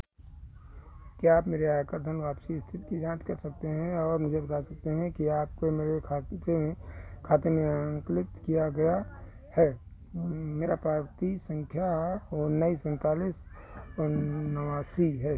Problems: constant background noise